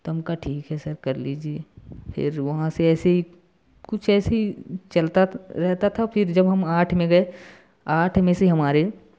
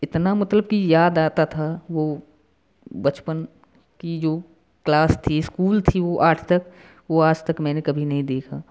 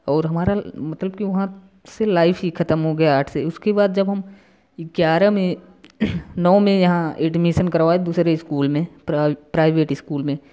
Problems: constant background noise